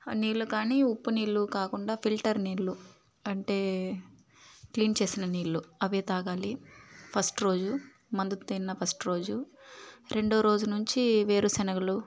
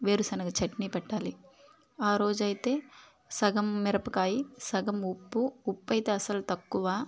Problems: background sounds at intervals